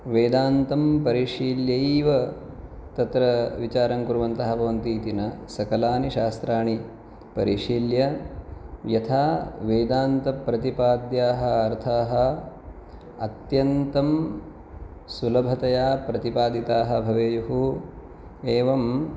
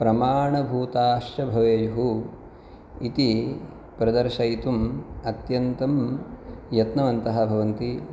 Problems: none marked